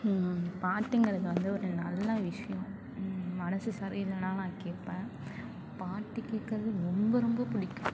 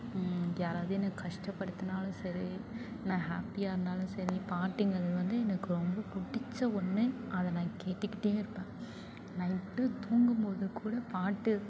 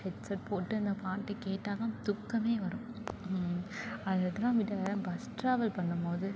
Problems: constant background noise, continuous background conversations